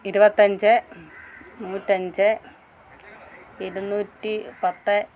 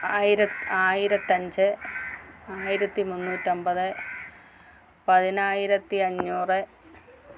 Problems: none marked